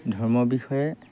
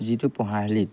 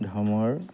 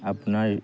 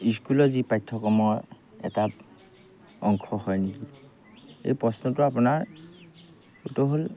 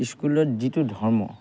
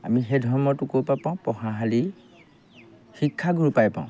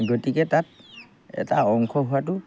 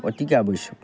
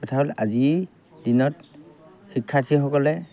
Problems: background sounds at intervals